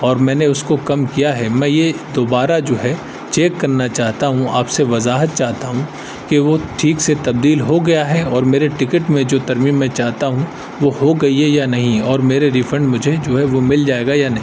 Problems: constant background noise